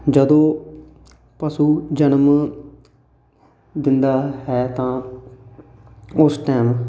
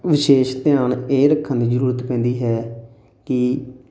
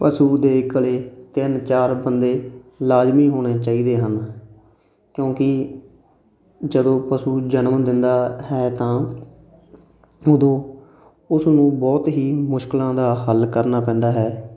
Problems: constant background noise